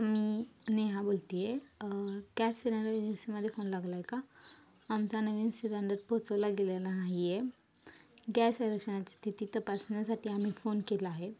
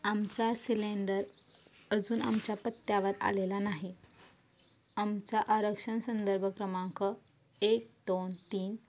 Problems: constant background noise